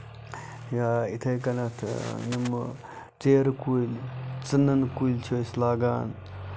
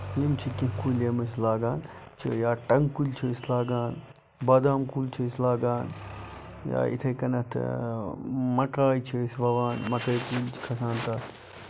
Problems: none marked